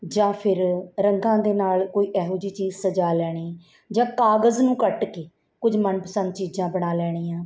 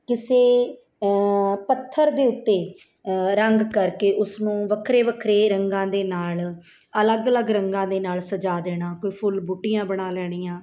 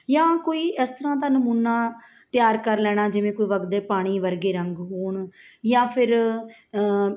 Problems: none marked